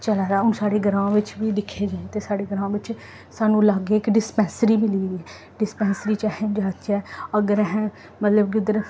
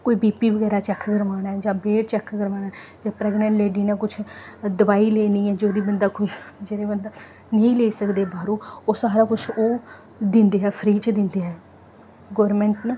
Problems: none marked